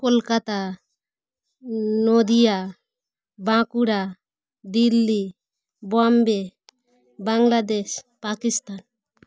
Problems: constant background noise